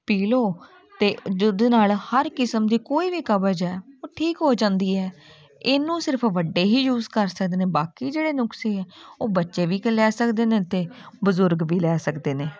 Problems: background sounds at intervals, continuous background conversations